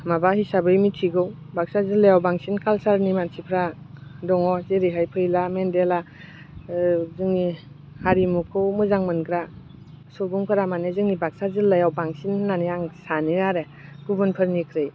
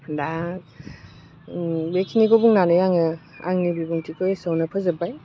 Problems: constant background noise